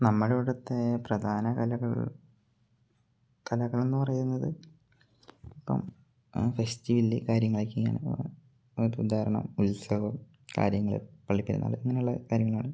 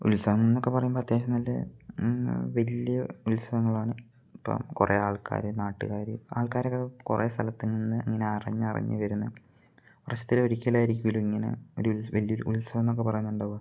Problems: low volume